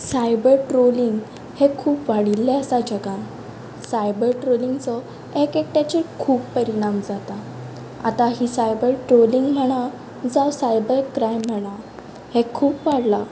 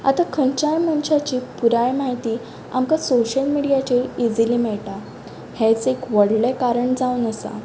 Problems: constant background noise, background conversations at intervals